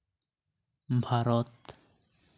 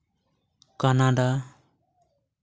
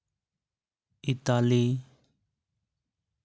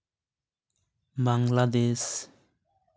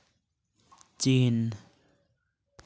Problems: none marked